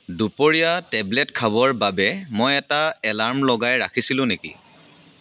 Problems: constant background noise